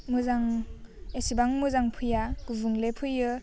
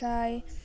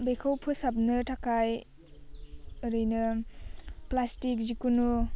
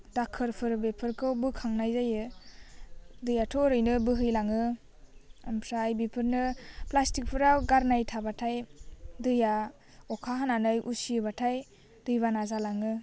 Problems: none marked